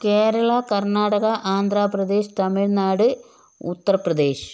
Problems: background sounds at intervals